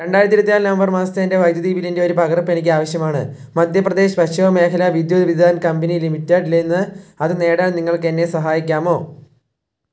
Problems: low volume